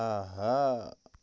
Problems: constant background noise, low volume